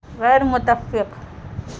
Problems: constant background noise